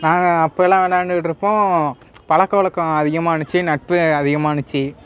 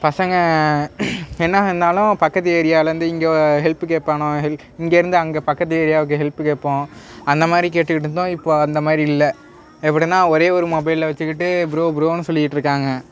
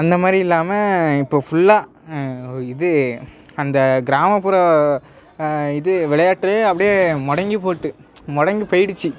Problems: background sounds at intervals